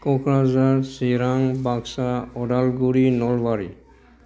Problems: background sounds at intervals